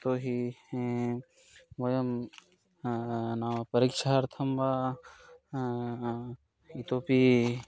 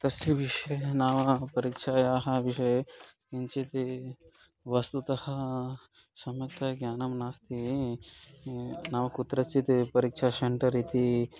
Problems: constant background noise